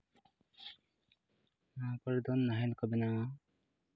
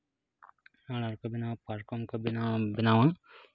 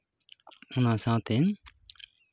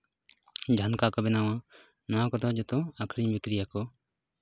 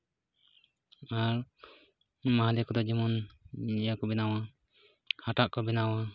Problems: constant background noise